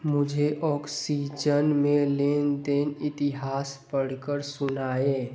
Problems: constant background noise